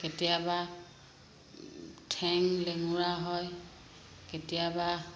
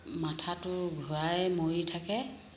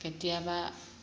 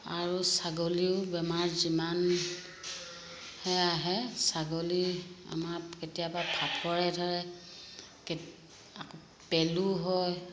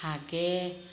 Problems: constant background noise, echo